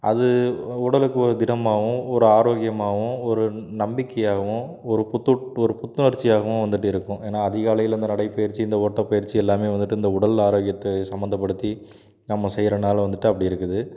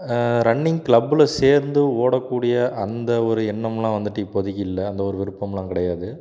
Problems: background sounds at intervals